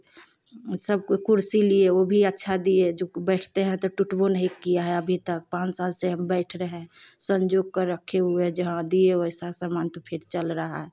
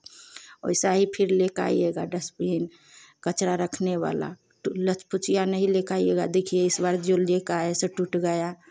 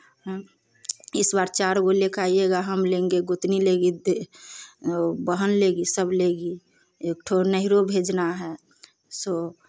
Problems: none marked